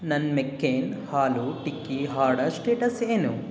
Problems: background sounds at intervals